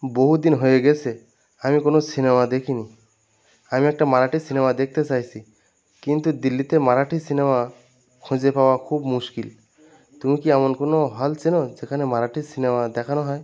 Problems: continuous background conversations